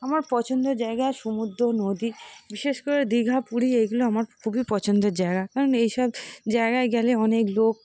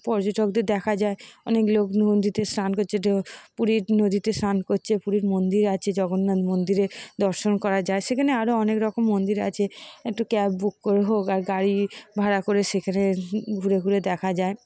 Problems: constant background noise